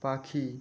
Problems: constant background noise